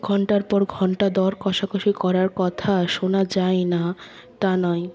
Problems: none marked